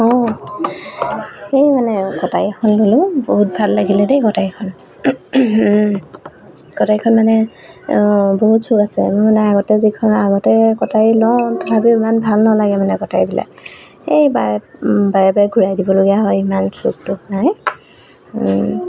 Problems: constant background noise